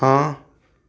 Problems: none marked